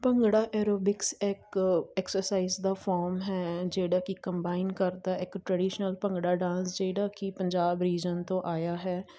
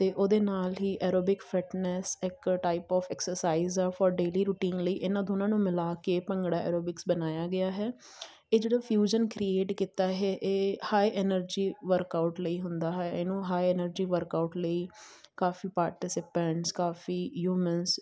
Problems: none marked